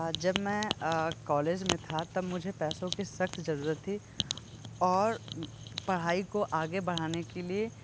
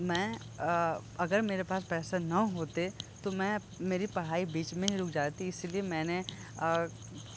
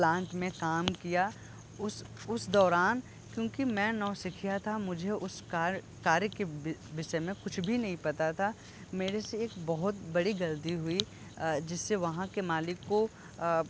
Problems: constant background noise, low volume